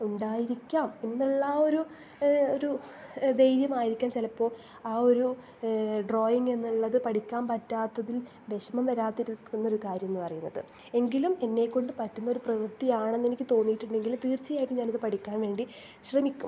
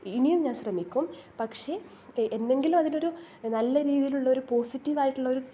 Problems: none marked